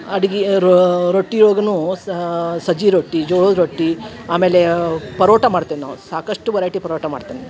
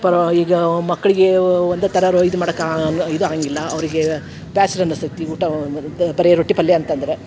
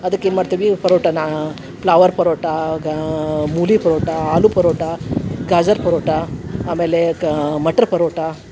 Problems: background sounds at intervals